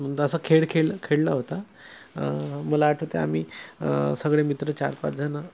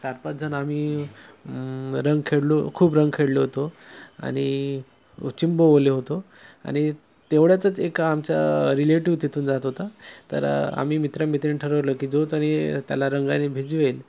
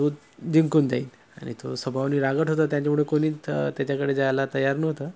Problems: none marked